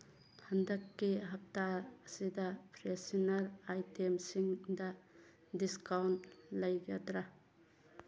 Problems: background conversations at intervals